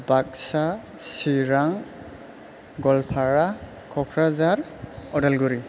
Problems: none marked